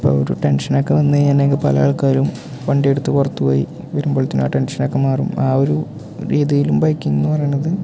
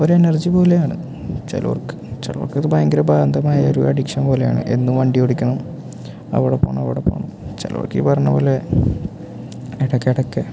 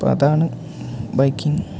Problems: none marked